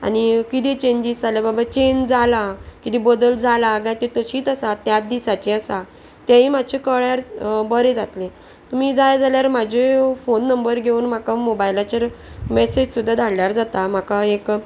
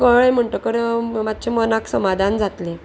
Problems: none marked